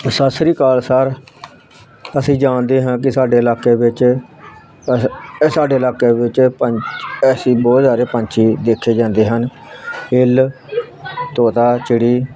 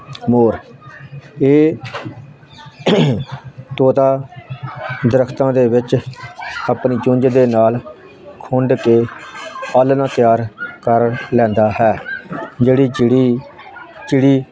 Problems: constant background noise